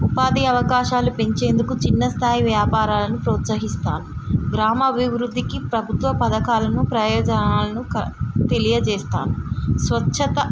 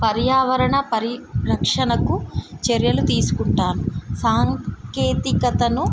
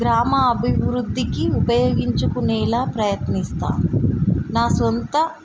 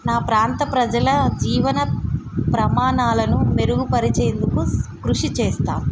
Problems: constant background noise